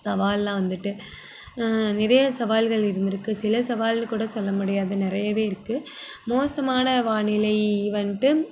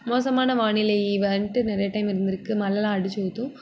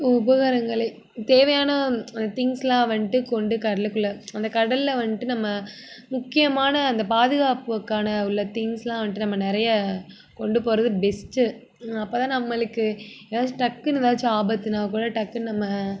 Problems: none marked